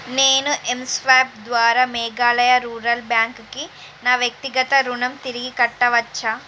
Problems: constant background noise